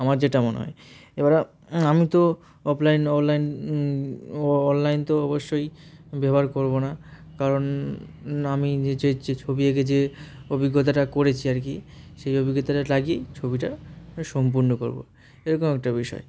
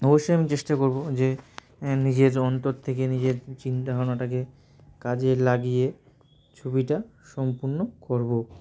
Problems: none marked